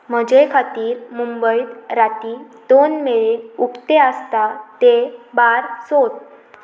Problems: constant background noise